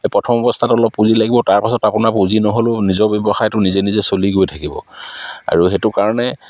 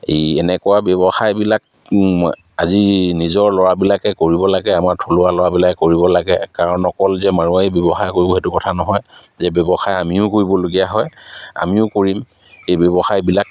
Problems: none marked